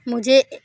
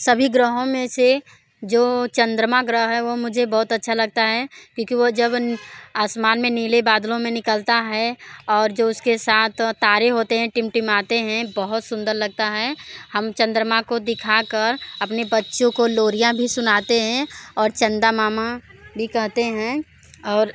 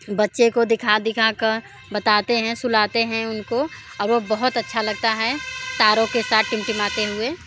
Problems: constant background noise